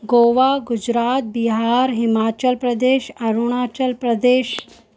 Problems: constant background noise